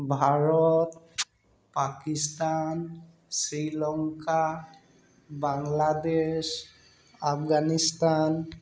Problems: background sounds at intervals